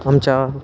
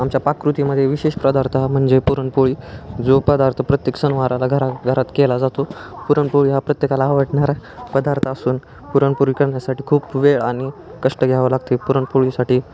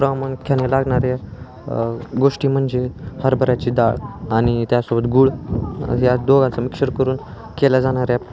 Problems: constant background noise, continuous background conversations